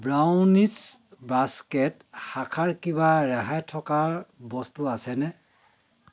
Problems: continuous background conversations